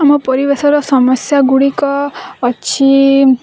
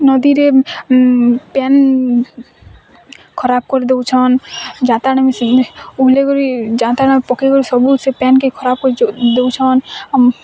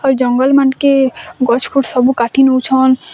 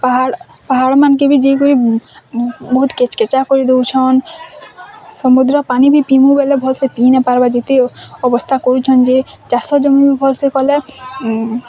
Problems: constant background noise, continuous background conversations